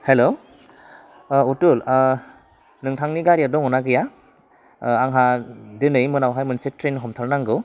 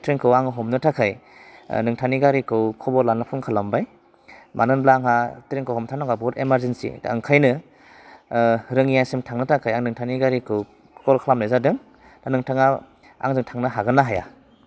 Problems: constant background noise